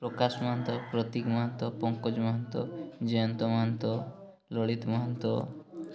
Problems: none marked